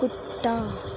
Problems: constant background noise, low volume